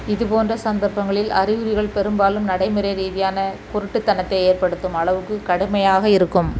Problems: constant background noise